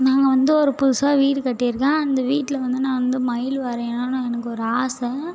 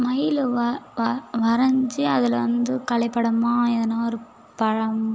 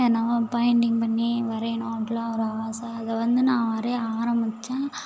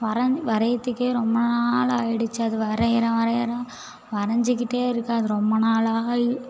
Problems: background conversations at intervals